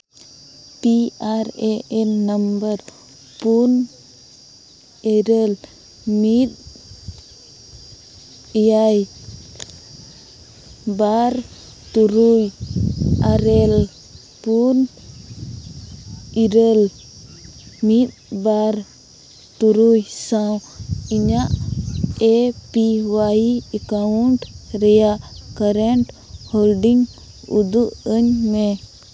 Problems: background sounds at intervals